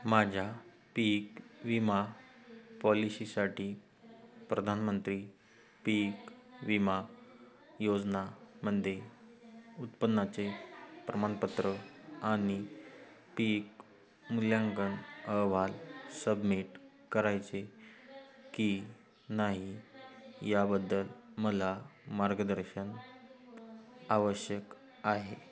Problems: background sounds at intervals, continuous background conversations